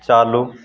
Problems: constant background noise